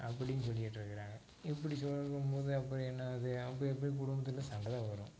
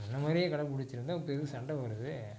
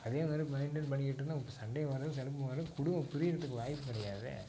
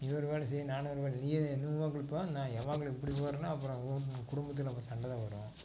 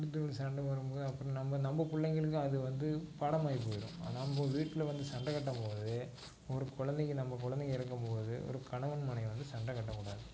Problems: constant background noise, low volume